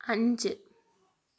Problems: none marked